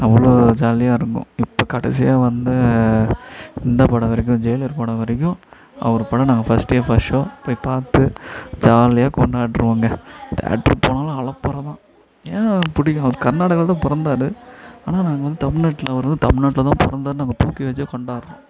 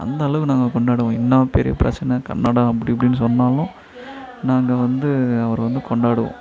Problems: background conversations at intervals